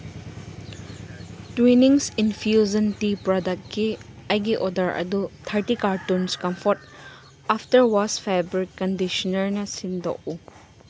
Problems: constant background noise